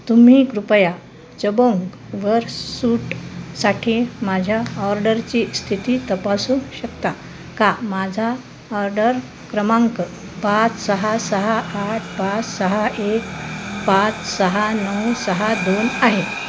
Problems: constant background noise